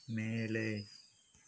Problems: background sounds at intervals, low volume